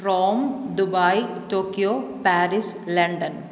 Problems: none marked